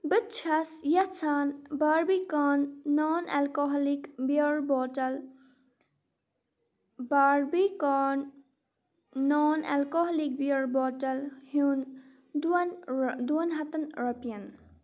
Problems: none marked